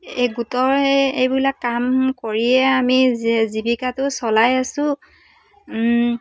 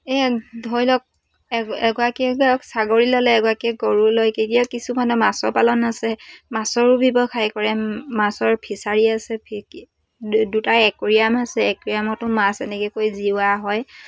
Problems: background sounds at intervals